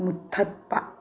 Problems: low volume